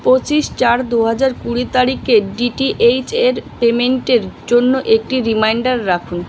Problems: constant background noise